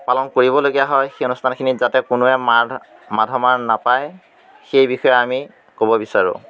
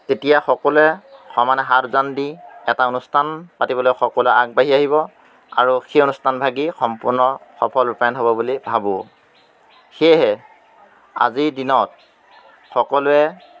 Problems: none marked